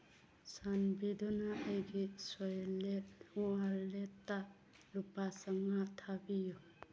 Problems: background sounds at intervals